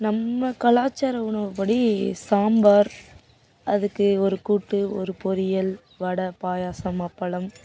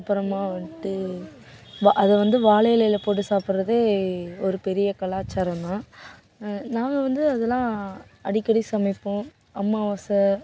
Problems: background sounds at intervals